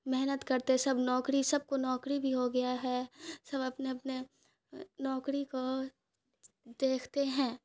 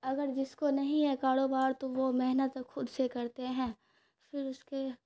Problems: none marked